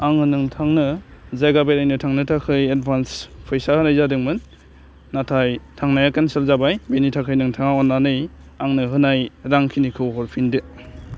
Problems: low volume